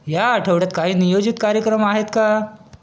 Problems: constant background noise